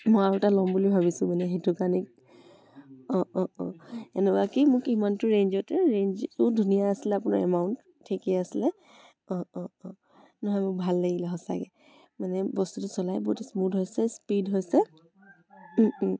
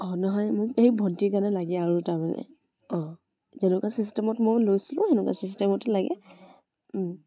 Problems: continuous background conversations